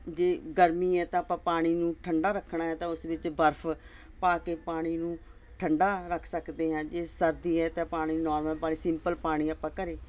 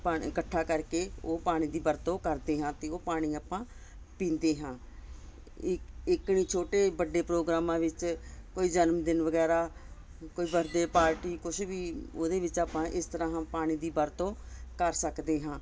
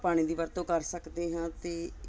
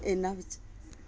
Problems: constant background noise